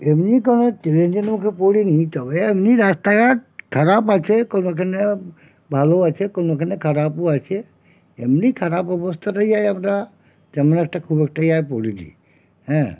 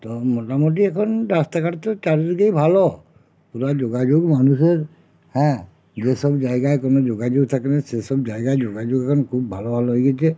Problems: none marked